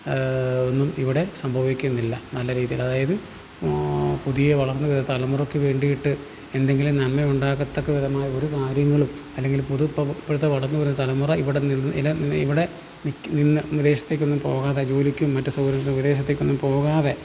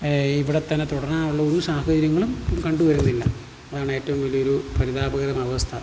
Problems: none marked